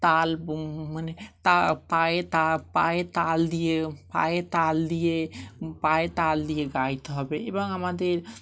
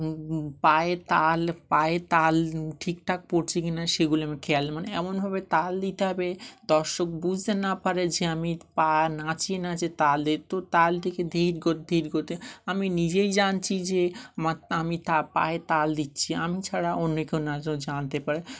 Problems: none marked